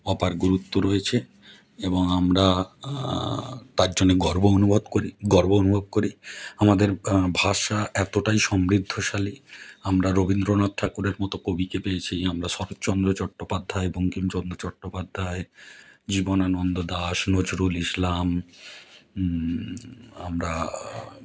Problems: background conversations at intervals